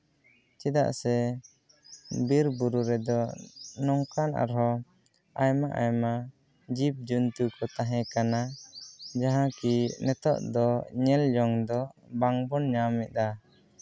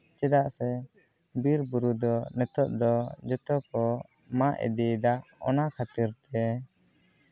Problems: background conversations at intervals